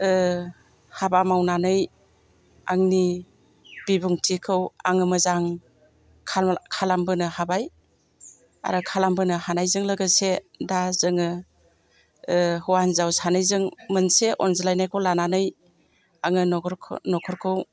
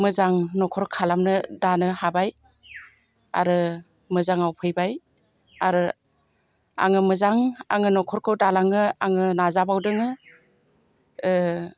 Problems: constant background noise